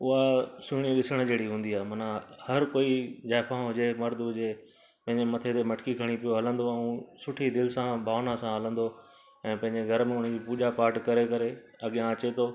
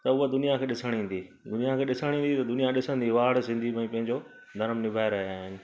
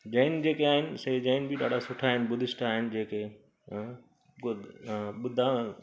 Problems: background sounds at intervals